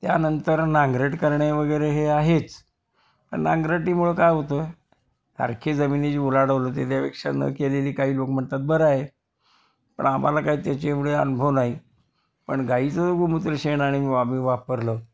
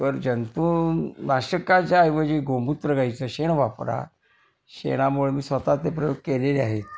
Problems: constant background noise, background conversations at intervals